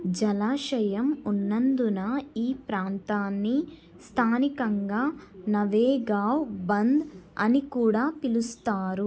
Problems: background sounds at intervals